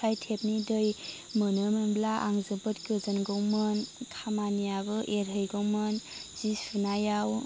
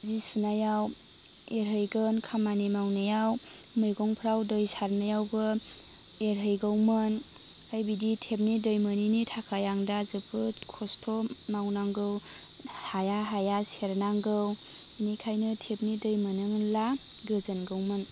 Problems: none marked